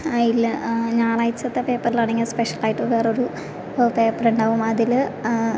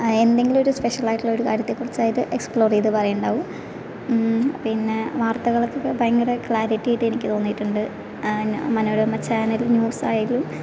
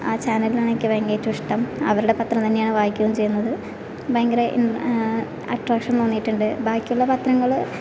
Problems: constant background noise